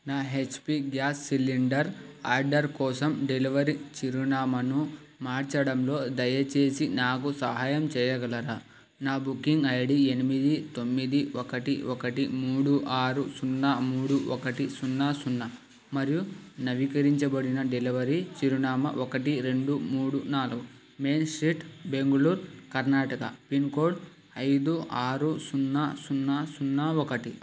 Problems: constant background noise